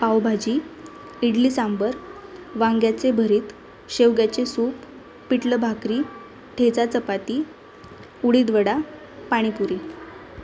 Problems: none marked